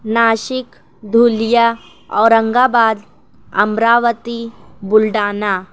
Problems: none marked